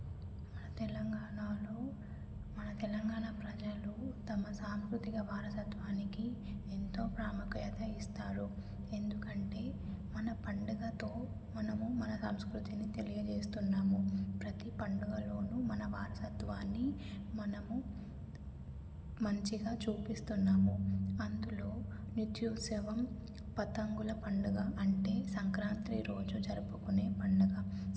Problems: low volume